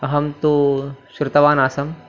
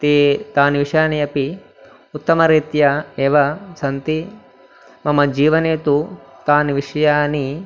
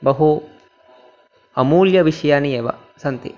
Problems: background sounds at intervals